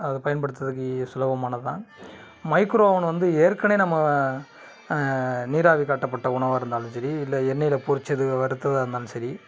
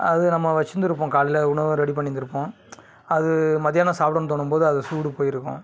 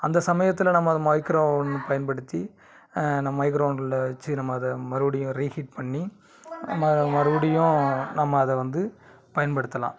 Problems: background sounds at intervals, background conversations at intervals